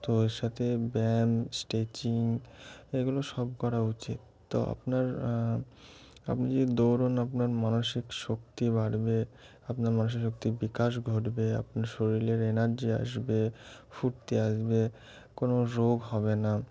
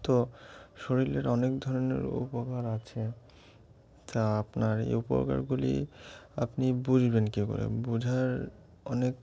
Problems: constant background noise, background conversations at intervals